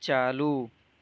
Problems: constant background noise